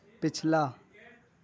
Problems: background sounds at intervals, continuous background conversations